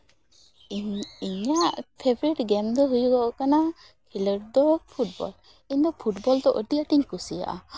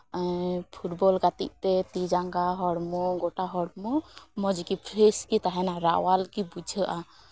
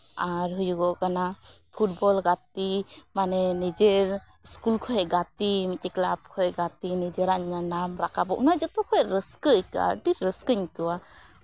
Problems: background sounds at intervals